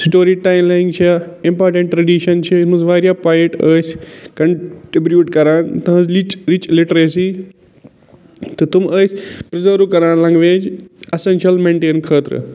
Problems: constant background noise